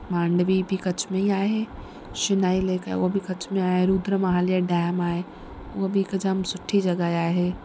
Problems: constant background noise